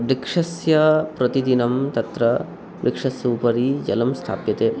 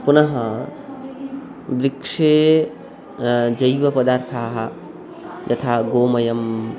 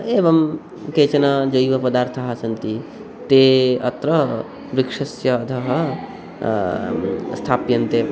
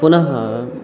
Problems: background sounds at intervals